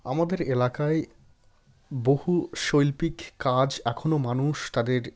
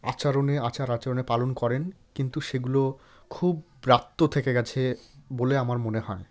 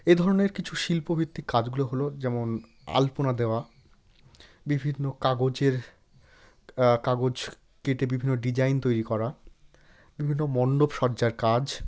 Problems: none marked